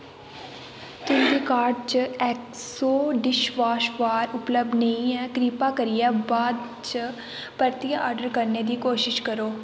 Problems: constant background noise